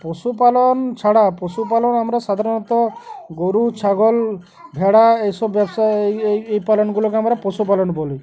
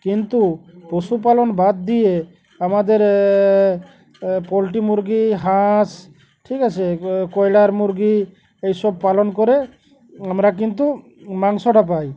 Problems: constant background noise, background conversations at intervals